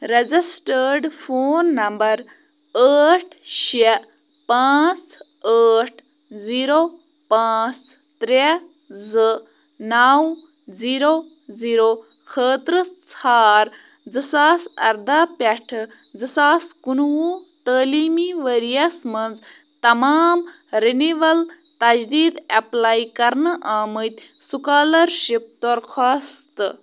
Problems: none marked